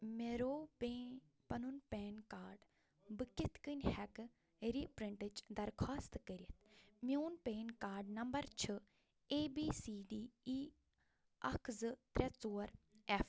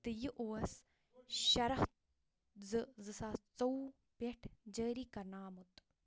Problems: none marked